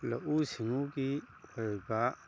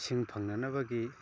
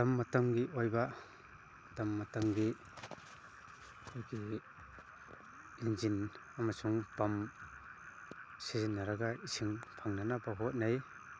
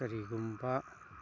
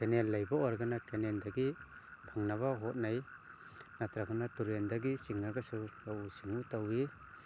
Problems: background sounds at intervals